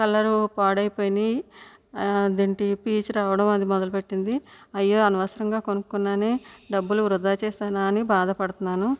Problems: none marked